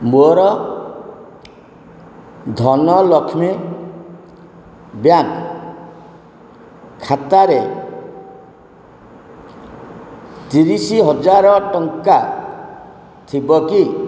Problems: constant background noise